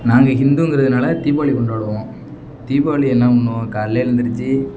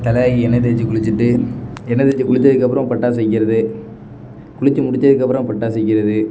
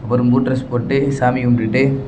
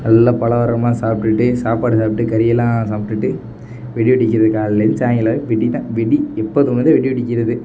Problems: background sounds at intervals